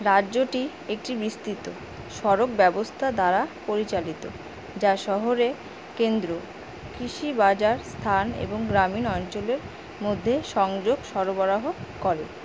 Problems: constant background noise